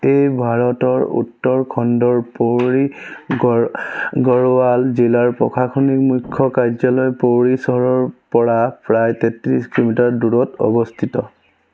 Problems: none marked